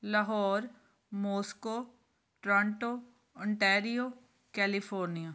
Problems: none marked